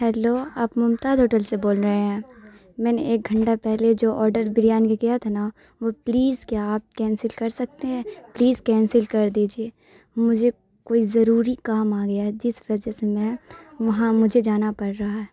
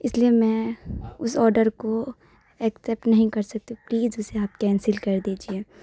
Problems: none marked